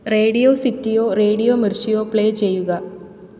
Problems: none marked